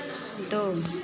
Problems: none marked